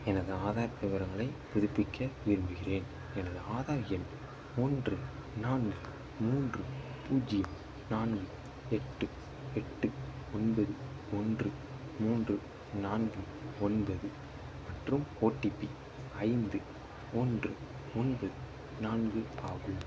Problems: constant background noise, low volume